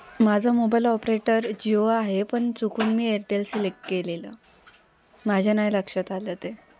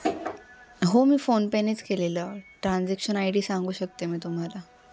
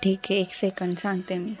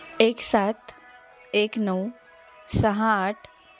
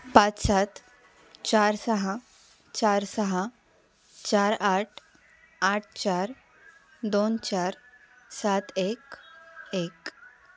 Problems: none marked